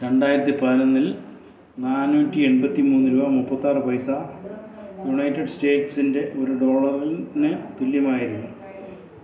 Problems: none marked